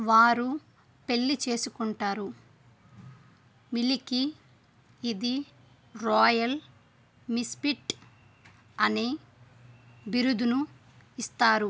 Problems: none marked